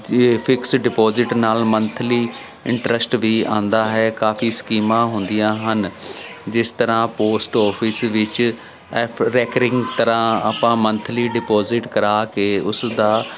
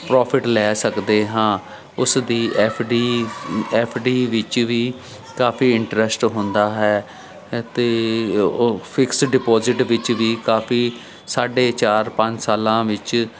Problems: none marked